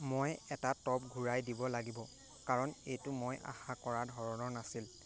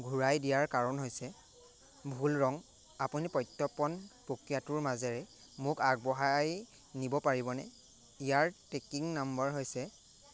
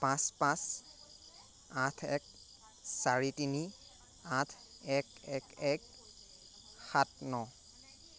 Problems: none marked